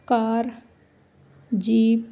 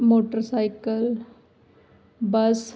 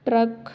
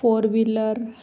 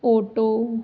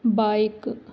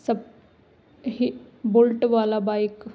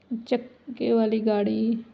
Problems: none marked